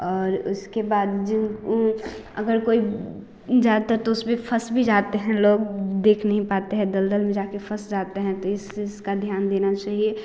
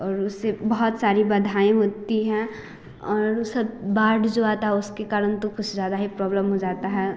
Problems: none marked